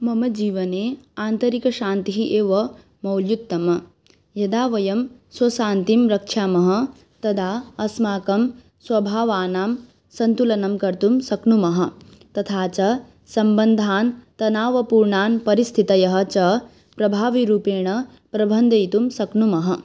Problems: background sounds at intervals